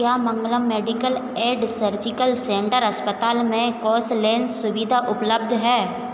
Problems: constant background noise, echo